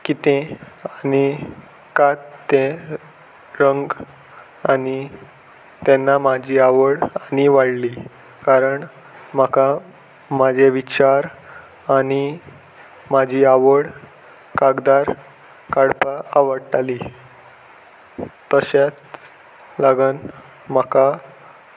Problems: none marked